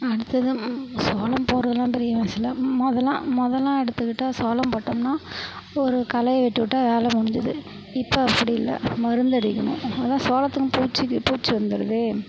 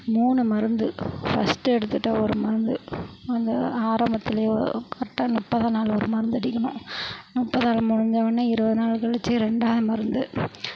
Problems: constant background noise